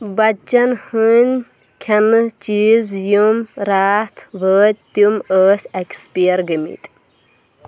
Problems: background sounds at intervals